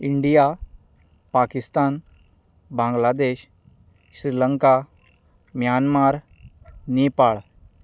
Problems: background sounds at intervals